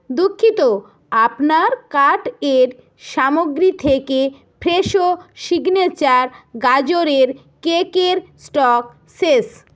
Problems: none marked